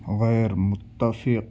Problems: none marked